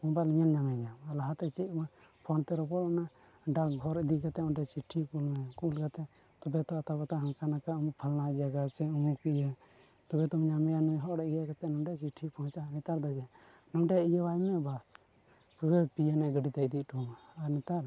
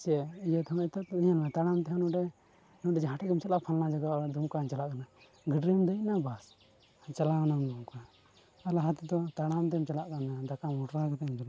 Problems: none marked